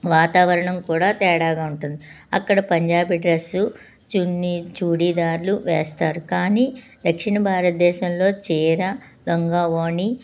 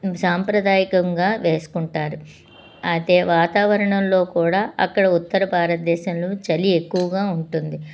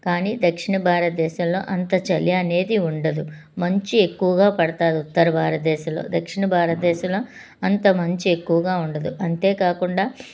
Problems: none marked